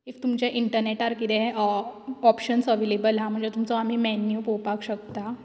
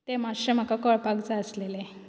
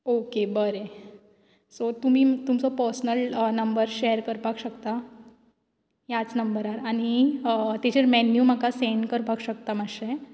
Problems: constant background noise